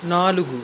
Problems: constant background noise